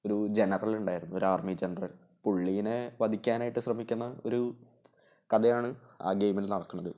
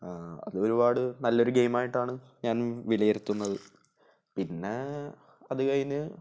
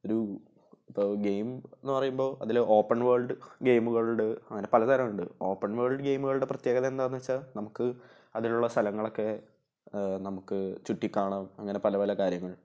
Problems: none marked